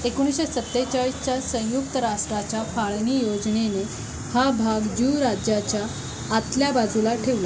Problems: none marked